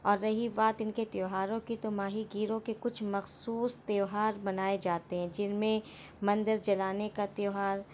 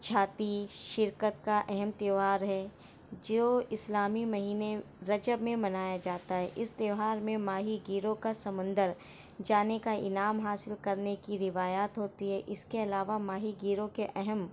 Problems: background sounds at intervals